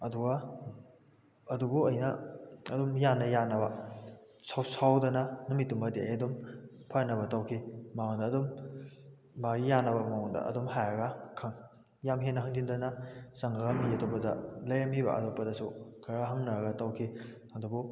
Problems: background sounds at intervals